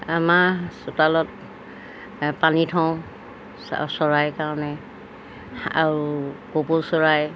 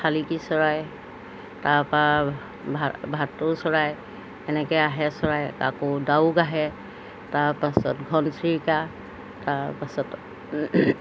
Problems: background sounds at intervals